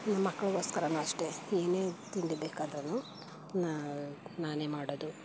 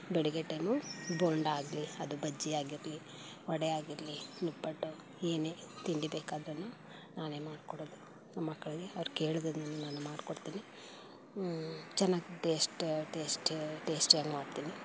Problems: background sounds at intervals